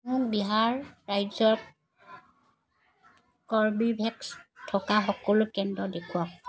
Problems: background sounds at intervals